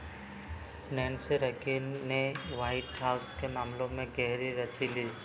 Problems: none marked